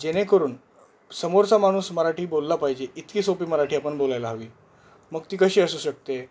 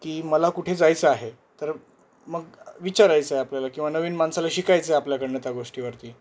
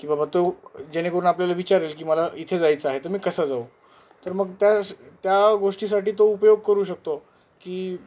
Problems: none marked